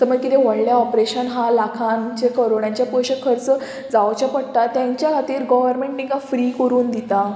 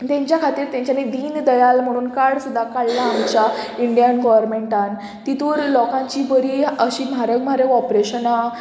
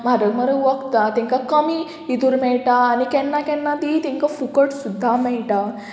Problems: background sounds at intervals